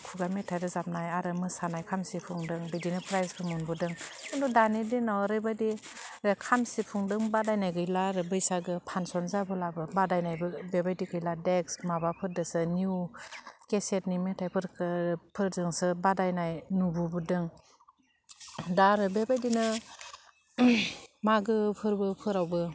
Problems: constant background noise